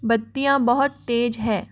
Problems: constant background noise